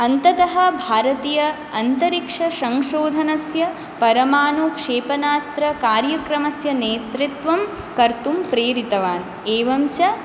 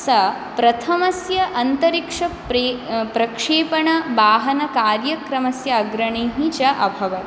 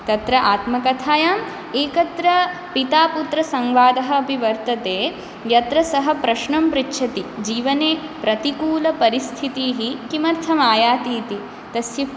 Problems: constant background noise